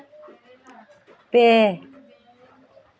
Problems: background conversations at intervals